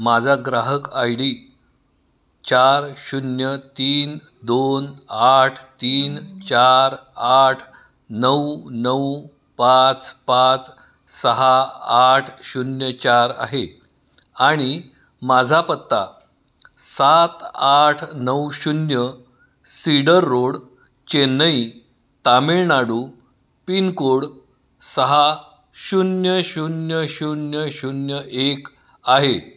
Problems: none marked